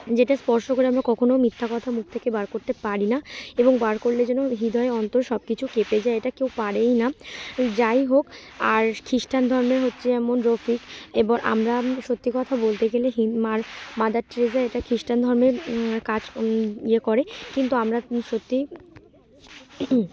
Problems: none marked